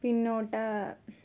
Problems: low volume